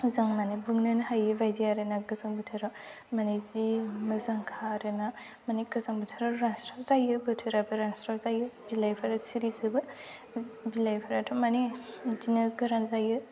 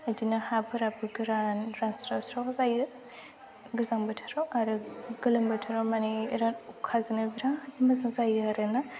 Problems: none marked